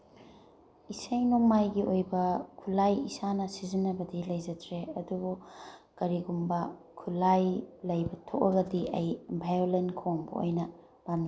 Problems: background sounds at intervals